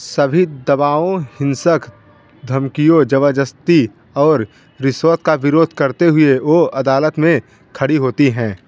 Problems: constant background noise